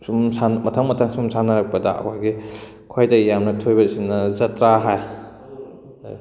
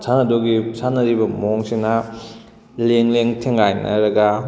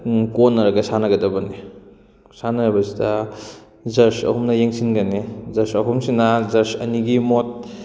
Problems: none marked